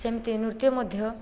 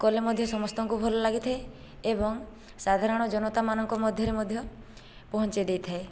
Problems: background conversations at intervals